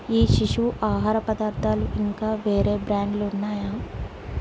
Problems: none marked